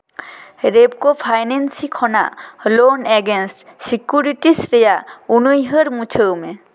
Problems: echo